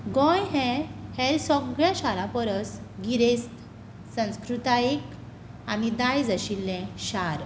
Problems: none marked